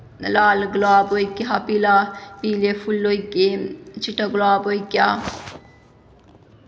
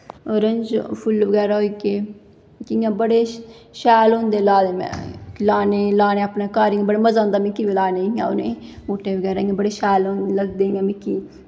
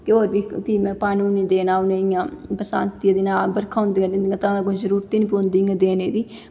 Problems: echo